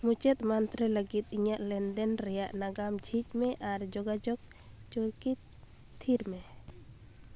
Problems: none marked